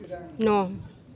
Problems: constant background noise